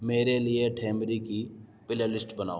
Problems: background sounds at intervals